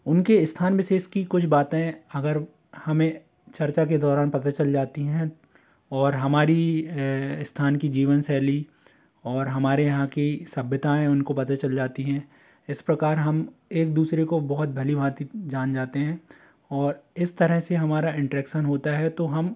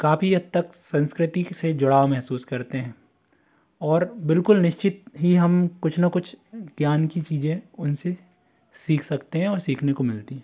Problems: constant background noise